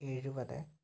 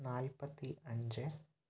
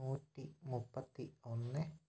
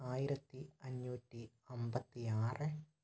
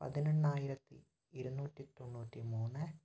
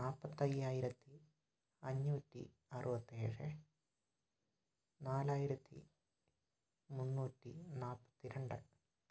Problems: low volume